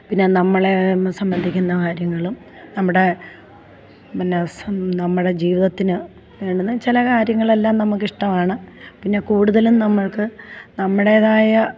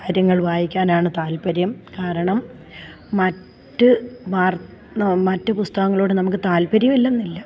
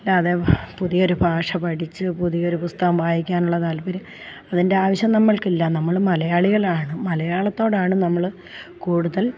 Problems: none marked